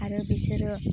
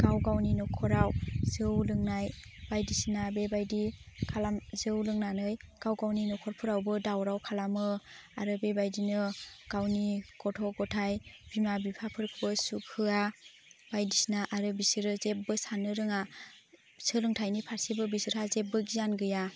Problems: constant background noise